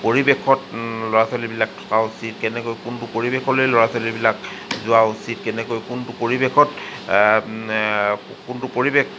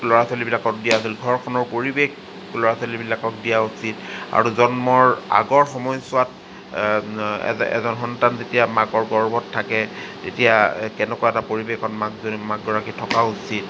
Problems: constant background noise